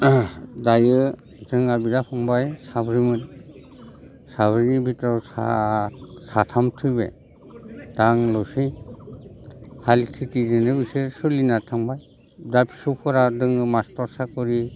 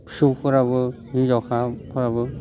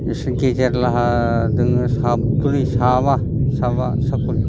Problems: constant background noise